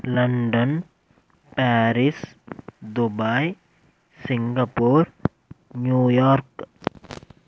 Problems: background sounds at intervals